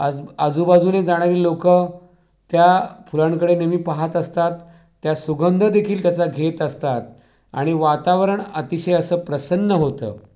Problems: background sounds at intervals